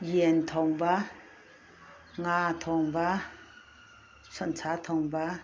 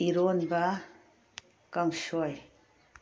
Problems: none marked